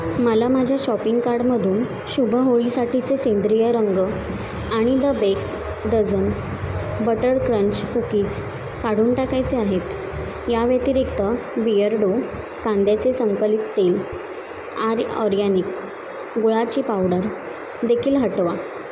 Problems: constant background noise